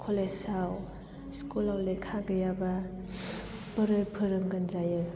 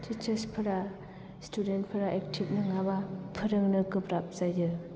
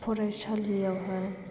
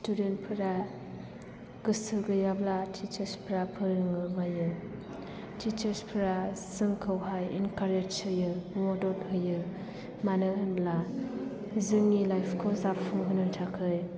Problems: background sounds at intervals